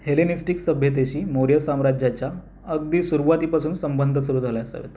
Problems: none marked